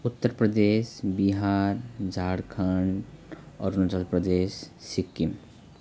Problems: none marked